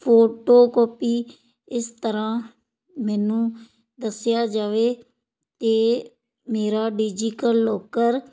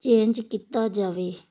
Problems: none marked